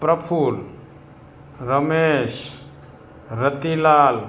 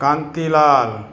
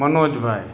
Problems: constant background noise